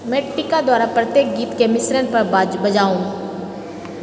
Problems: constant background noise